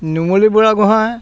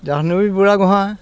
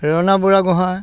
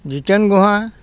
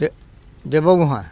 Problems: constant background noise, background conversations at intervals